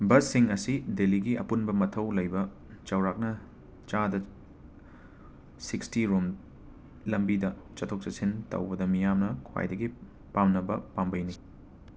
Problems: constant background noise